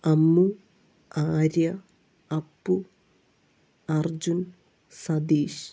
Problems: low volume